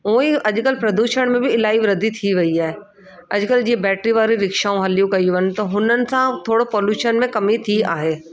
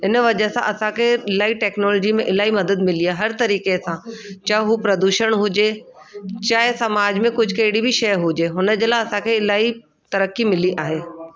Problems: constant background noise